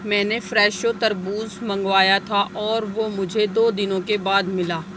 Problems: none marked